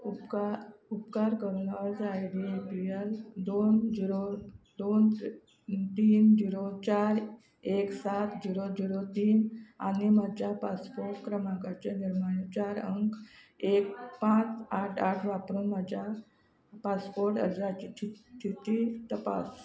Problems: none marked